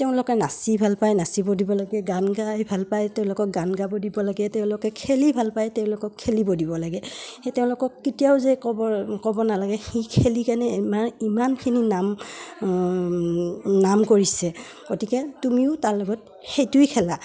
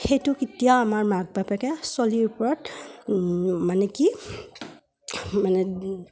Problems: none marked